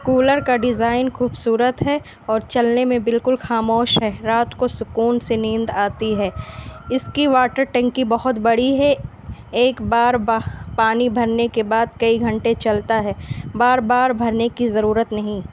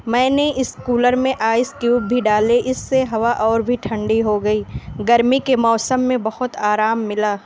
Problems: constant background noise